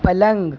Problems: none marked